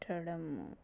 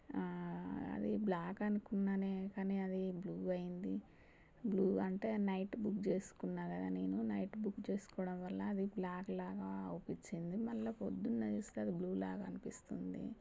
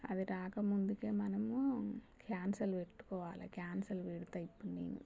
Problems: low volume